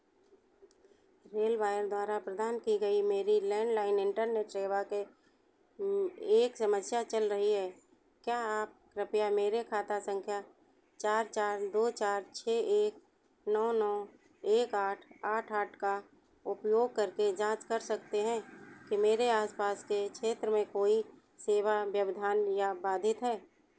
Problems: constant background noise